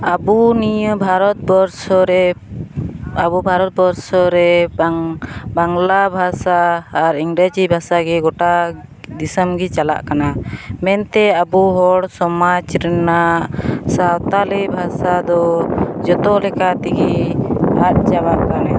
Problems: background sounds at intervals